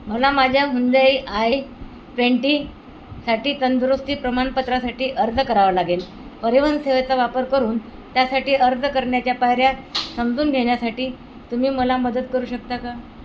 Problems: none marked